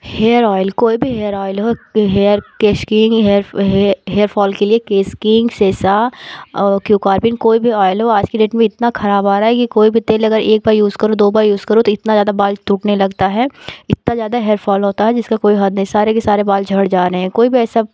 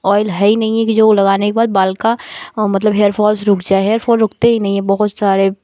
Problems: background sounds at intervals, background conversations at intervals